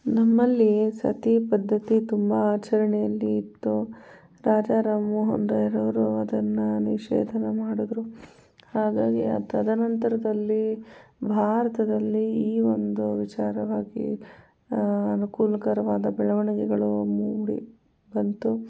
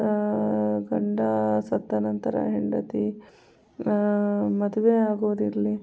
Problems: background sounds at intervals, low volume